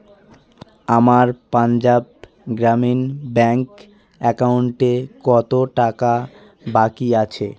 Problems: continuous background conversations